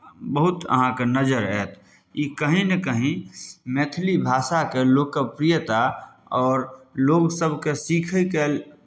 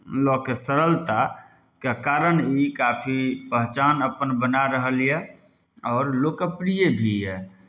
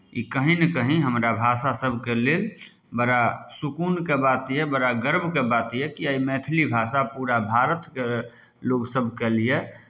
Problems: none marked